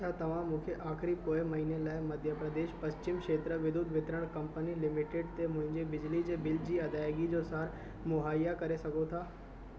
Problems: constant background noise